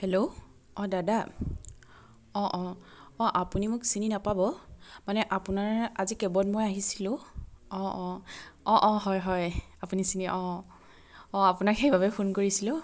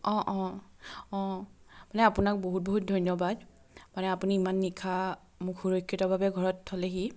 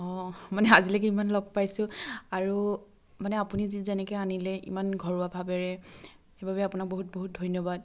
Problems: none marked